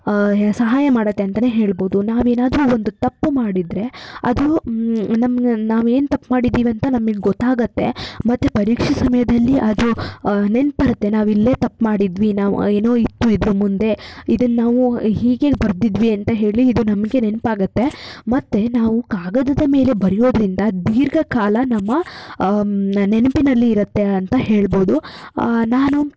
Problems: none marked